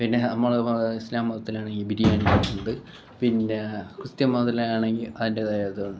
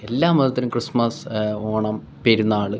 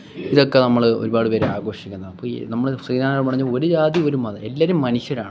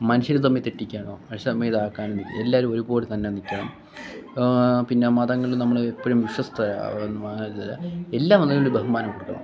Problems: background sounds at intervals, background conversations at intervals, low volume